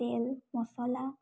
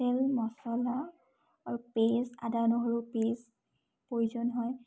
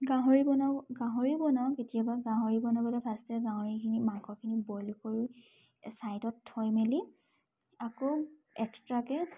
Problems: none marked